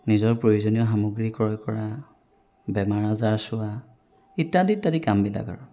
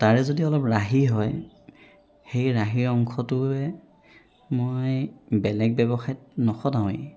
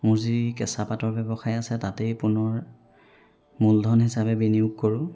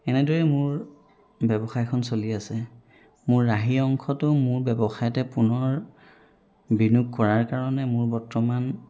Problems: background sounds at intervals